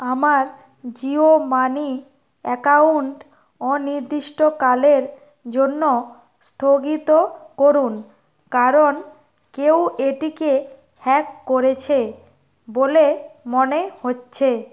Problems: constant background noise